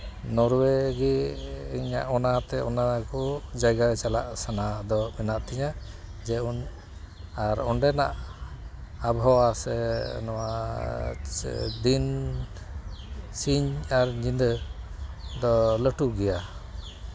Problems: none marked